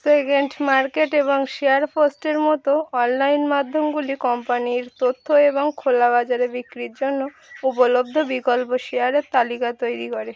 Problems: none marked